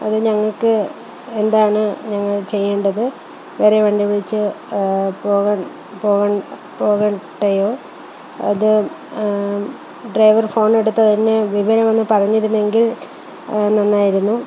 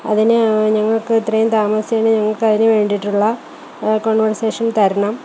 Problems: constant background noise, low volume